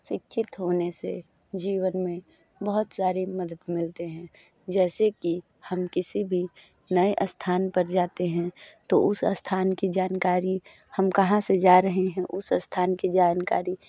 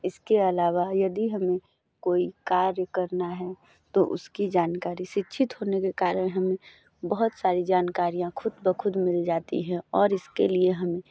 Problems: background sounds at intervals